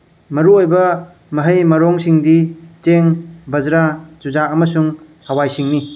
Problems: background sounds at intervals